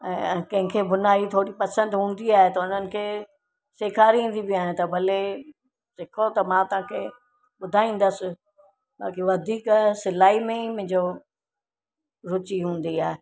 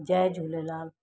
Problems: constant background noise